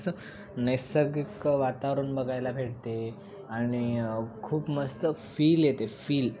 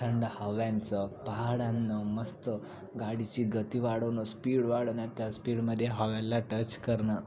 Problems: constant background noise